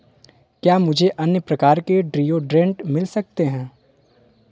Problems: constant background noise